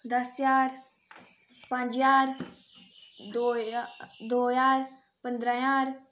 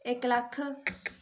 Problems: none marked